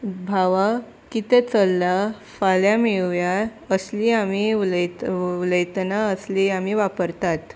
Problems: none marked